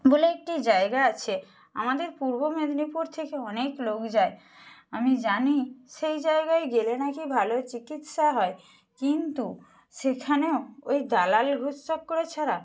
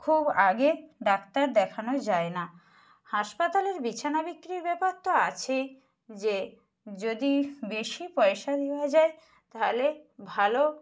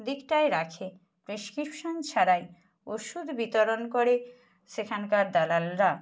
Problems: none marked